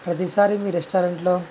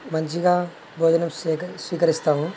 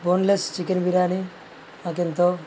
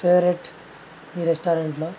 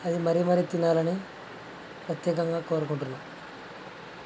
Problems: constant background noise